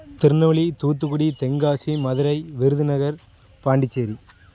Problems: background sounds at intervals, background conversations at intervals